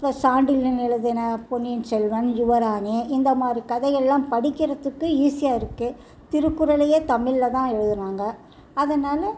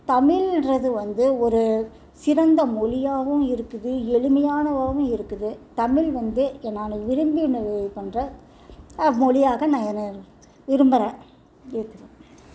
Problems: continuous background conversations